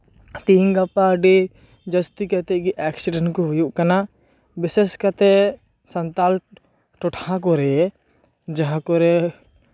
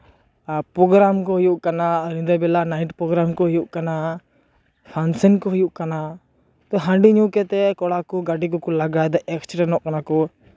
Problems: background sounds at intervals